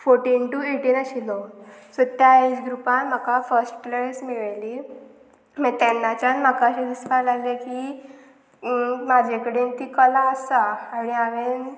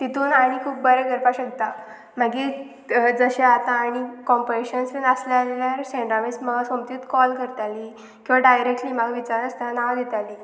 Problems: none marked